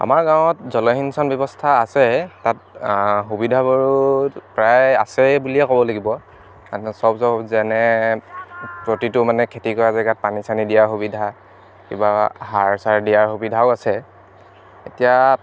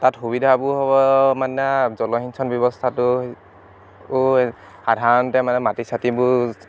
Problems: none marked